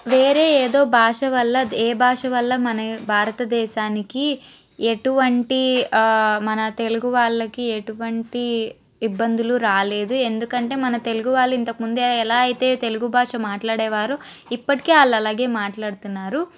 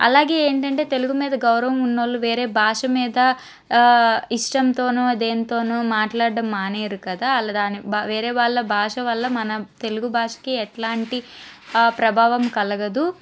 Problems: constant background noise